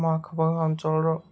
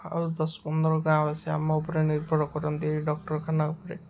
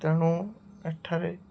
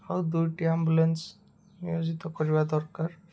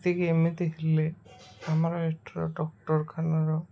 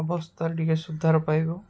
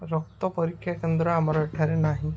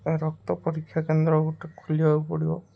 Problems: constant background noise